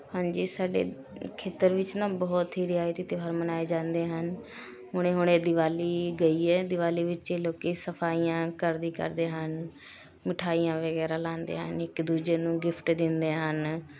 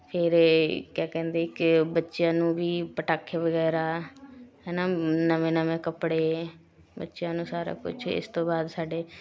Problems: continuous background conversations